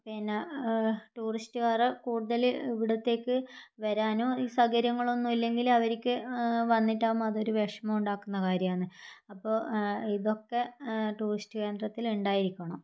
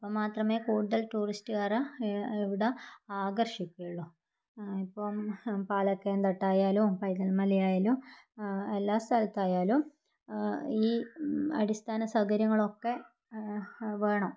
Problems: none marked